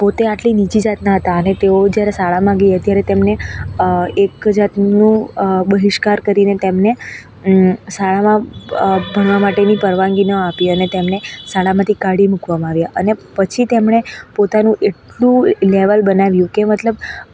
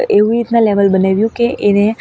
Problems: constant background noise